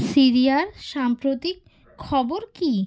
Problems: constant background noise, background conversations at intervals